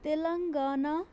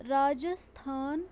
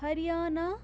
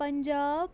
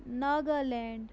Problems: constant background noise